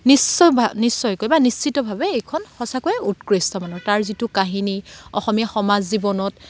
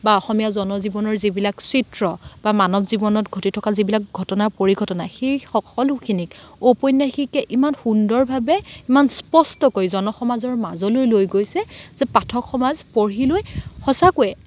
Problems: background sounds at intervals, background conversations at intervals